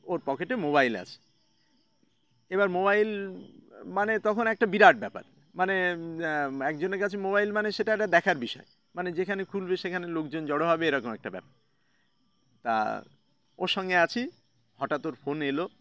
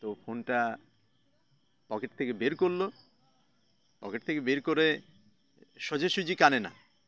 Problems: none marked